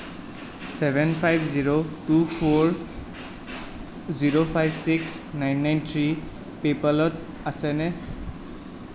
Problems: constant background noise